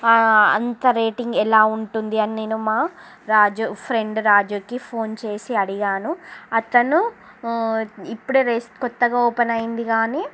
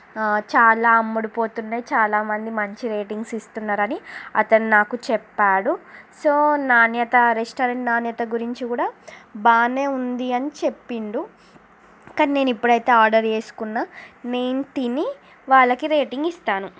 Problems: constant background noise